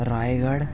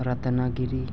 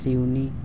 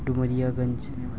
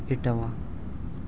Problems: constant background noise, low volume